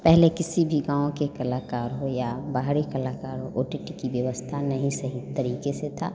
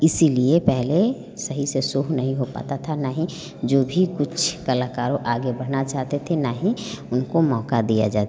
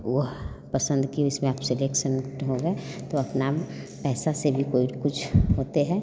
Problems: none marked